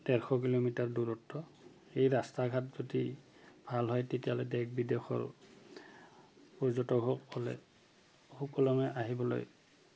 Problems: constant background noise